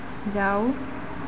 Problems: constant background noise